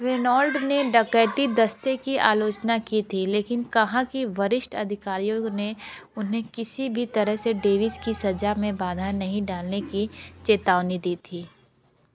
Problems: background sounds at intervals